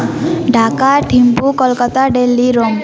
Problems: continuous background conversations